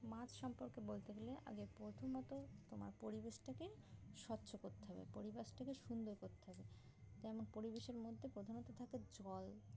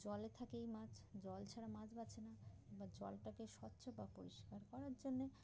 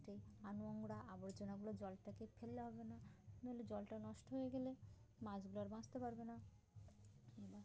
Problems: constant background noise